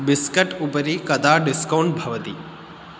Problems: none marked